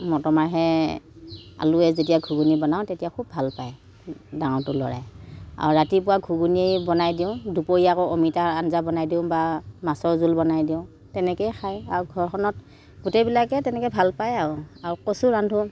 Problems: background sounds at intervals